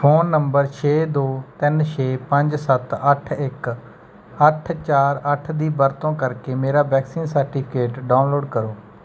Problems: background sounds at intervals